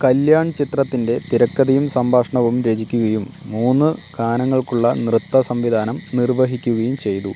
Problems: constant background noise